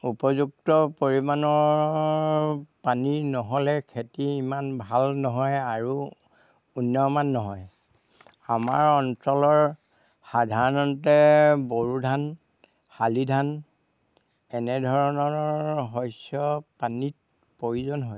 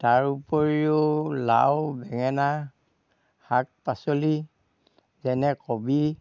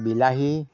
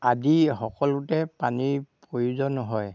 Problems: background sounds at intervals